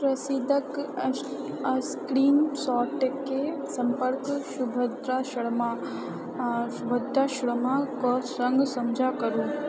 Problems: background sounds at intervals, background conversations at intervals